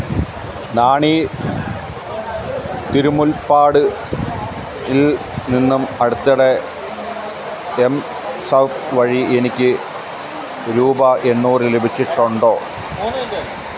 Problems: constant background noise